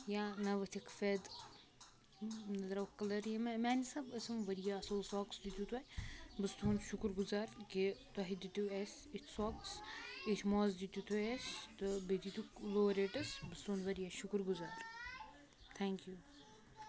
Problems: constant background noise, continuous background conversations